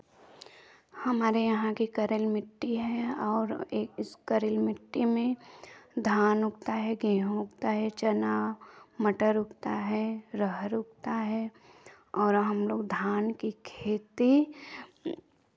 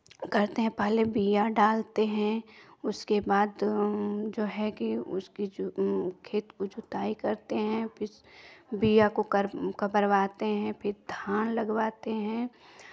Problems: background sounds at intervals, continuous background conversations